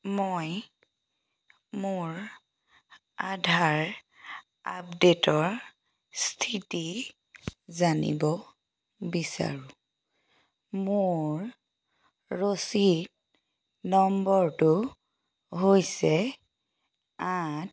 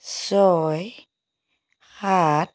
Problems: none marked